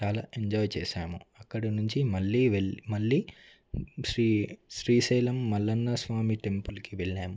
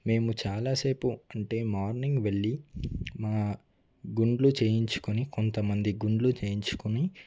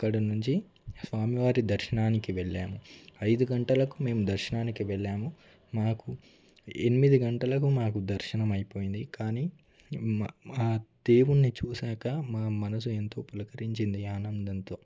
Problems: low volume